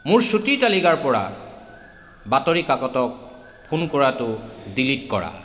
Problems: background sounds at intervals